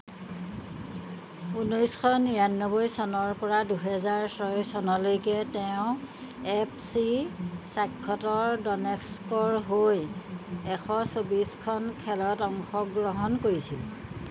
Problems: background sounds at intervals